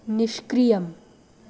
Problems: none marked